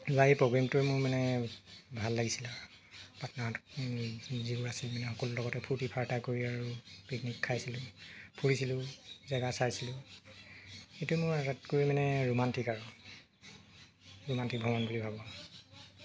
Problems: constant background noise